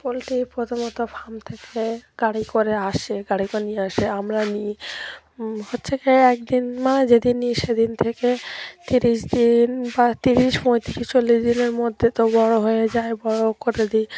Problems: none marked